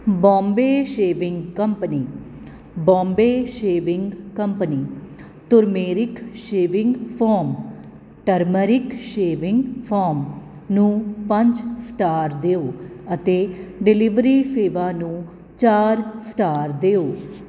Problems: none marked